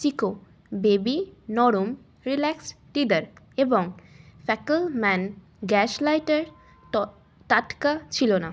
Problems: constant background noise